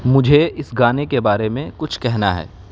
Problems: background sounds at intervals